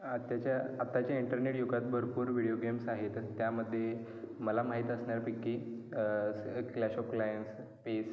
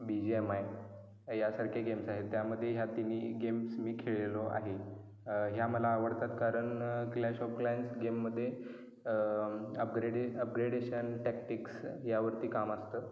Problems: background sounds at intervals, echo